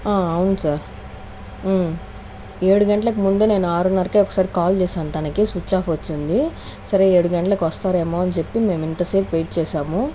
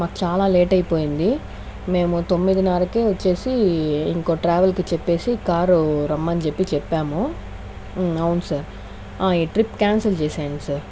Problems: none marked